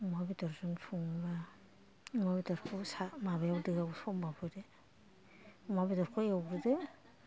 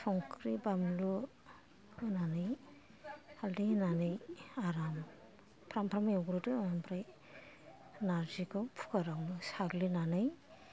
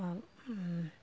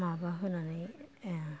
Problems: low volume